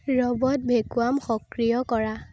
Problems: constant background noise